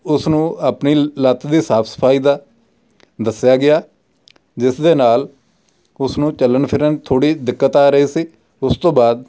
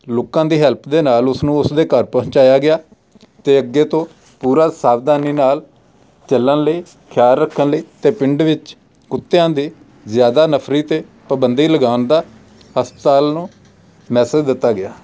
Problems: background sounds at intervals